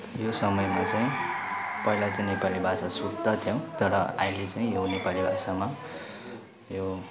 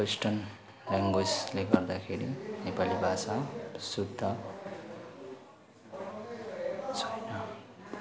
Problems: none marked